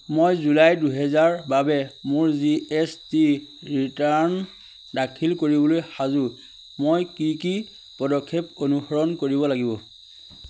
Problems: constant background noise